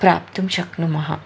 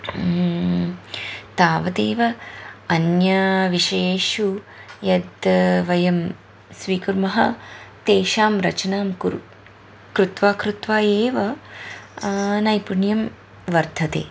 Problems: none marked